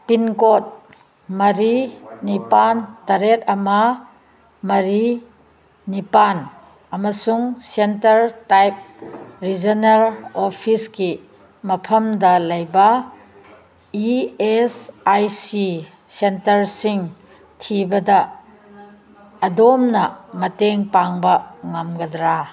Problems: none marked